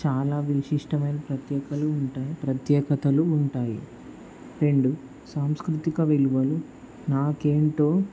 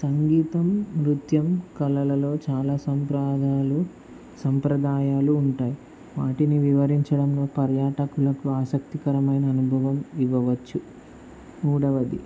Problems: constant background noise